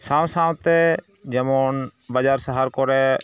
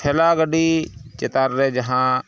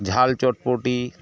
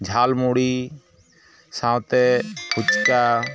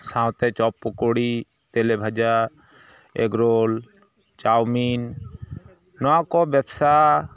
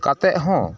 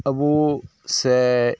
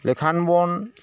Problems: background sounds at intervals